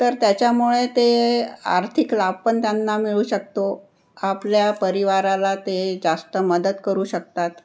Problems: none marked